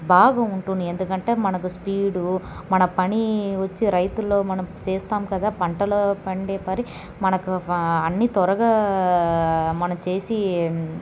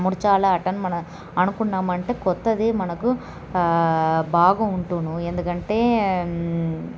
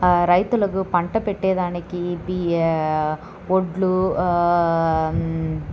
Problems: none marked